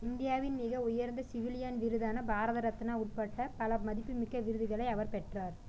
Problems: low volume